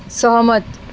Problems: constant background noise